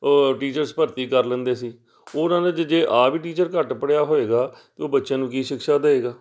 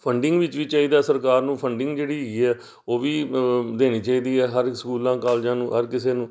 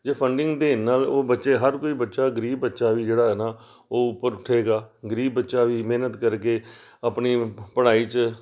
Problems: none marked